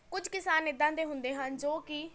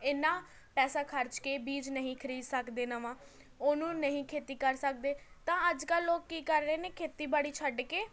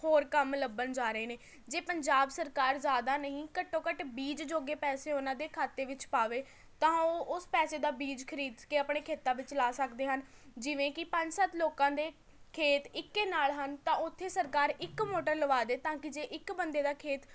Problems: background conversations at intervals